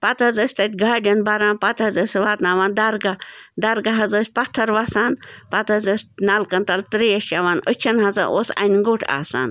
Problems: constant background noise